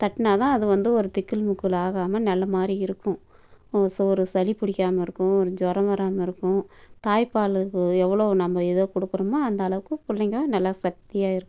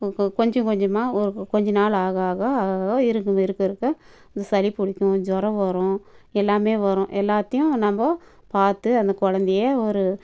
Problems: background sounds at intervals